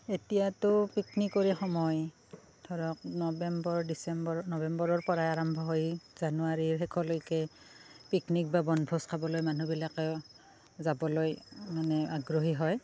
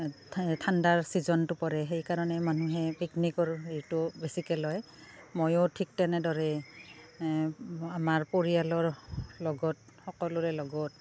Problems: constant background noise, background conversations at intervals